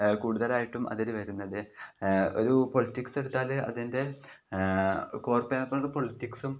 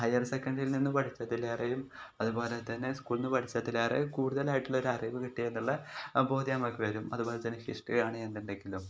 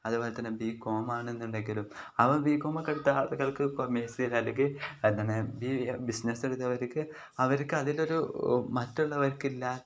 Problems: none marked